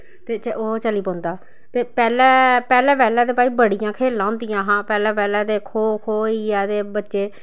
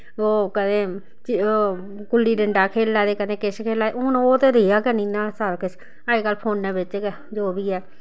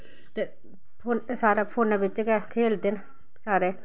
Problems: none marked